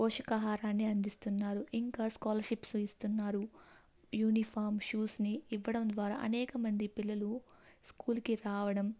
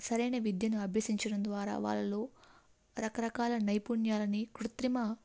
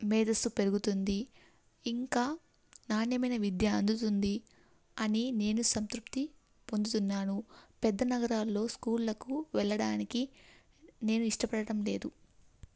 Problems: none marked